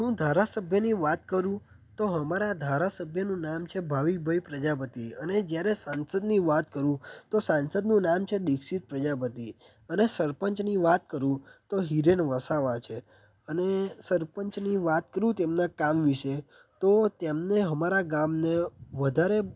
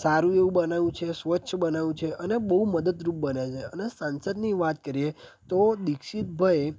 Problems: background sounds at intervals